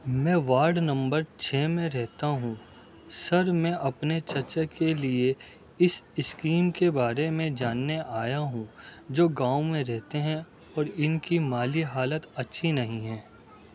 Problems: background sounds at intervals, background conversations at intervals, low volume